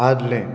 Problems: low volume